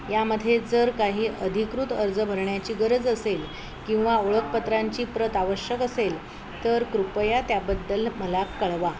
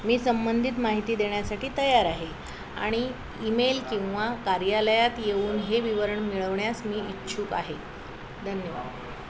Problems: constant background noise